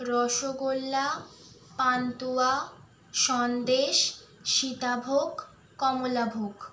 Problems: constant background noise